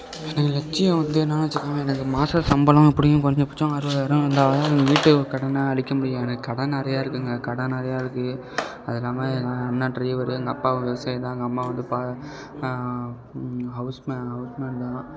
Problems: low volume